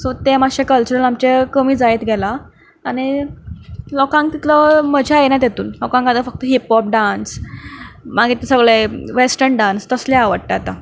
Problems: background sounds at intervals